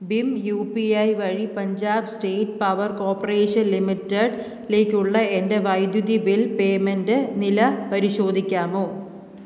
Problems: low volume